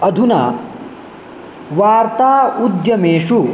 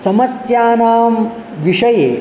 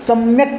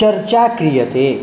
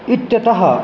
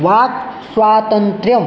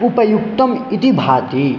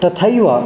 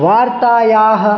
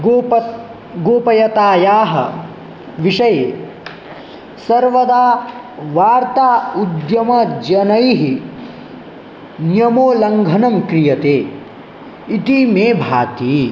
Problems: none marked